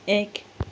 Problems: none marked